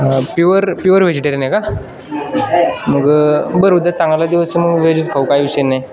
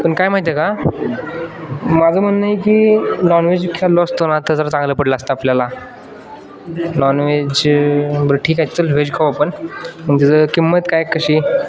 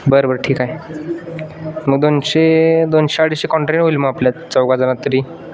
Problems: constant background noise